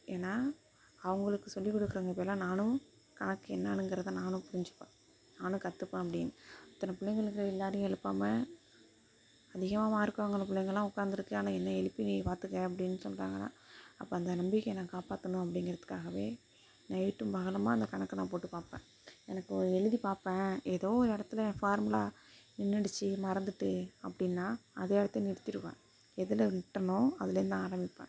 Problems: constant background noise, low volume